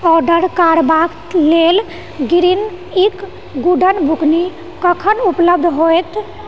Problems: background sounds at intervals